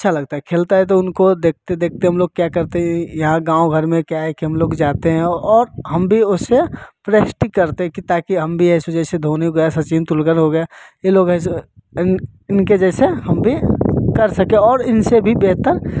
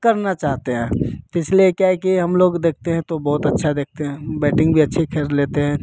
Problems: constant background noise